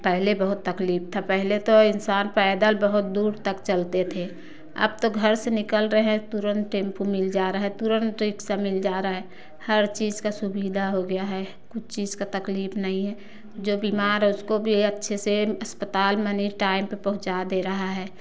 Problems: none marked